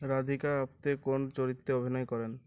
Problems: low volume